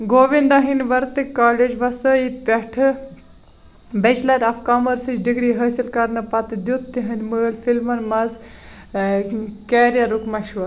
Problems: constant background noise